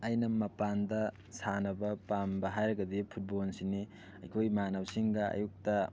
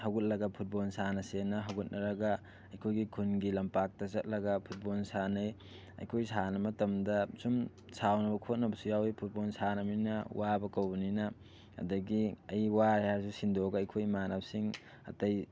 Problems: background sounds at intervals, background conversations at intervals